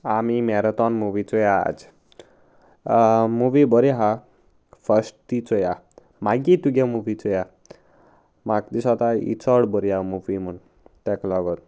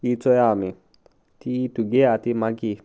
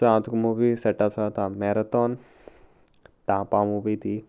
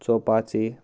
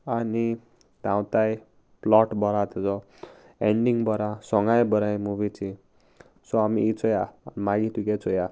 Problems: none marked